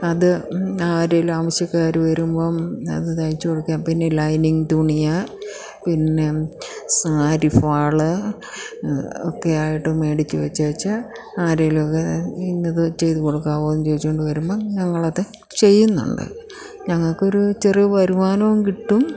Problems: none marked